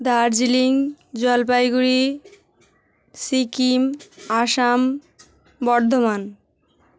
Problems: none marked